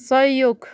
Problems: continuous background conversations